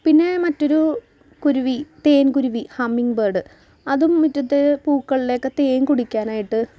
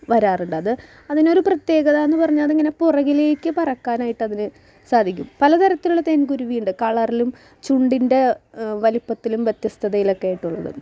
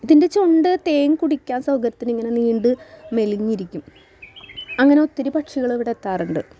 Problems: background sounds at intervals